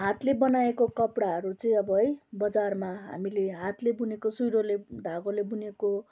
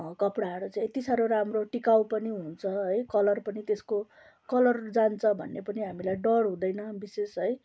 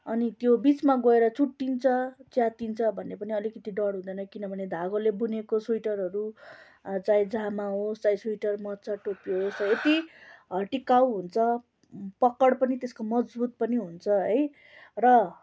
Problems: none marked